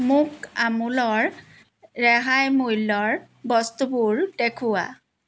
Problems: background sounds at intervals